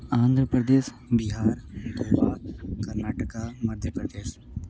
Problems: constant background noise